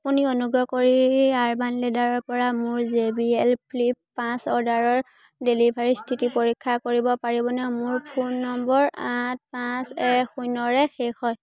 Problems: none marked